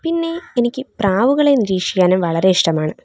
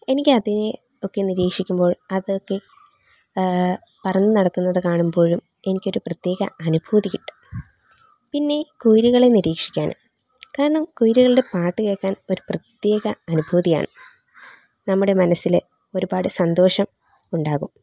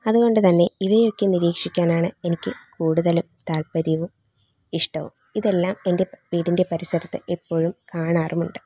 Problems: background sounds at intervals